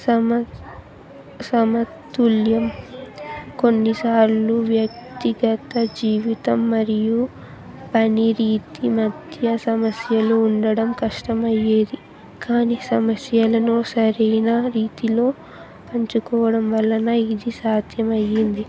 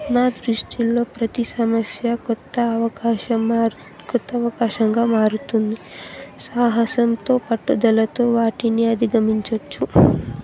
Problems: background sounds at intervals, continuous background conversations